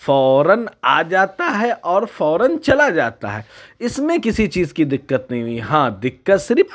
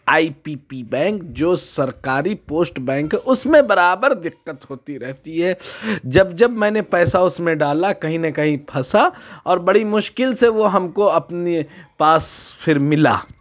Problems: none marked